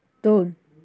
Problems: none marked